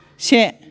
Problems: background conversations at intervals